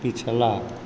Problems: constant background noise